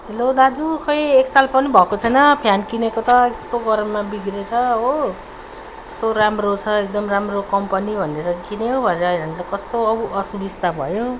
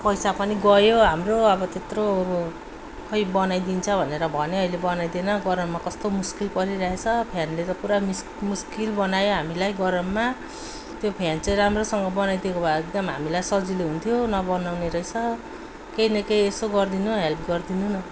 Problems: background sounds at intervals